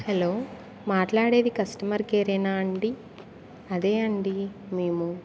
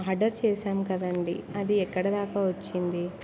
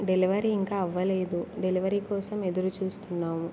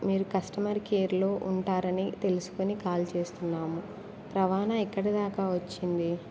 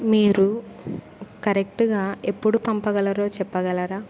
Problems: background sounds at intervals